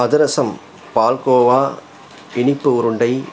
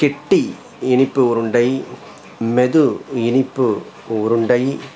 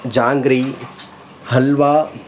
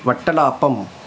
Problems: constant background noise